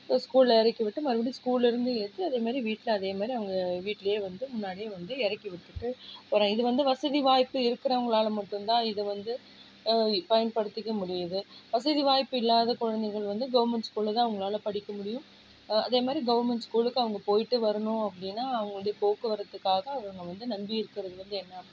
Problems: low volume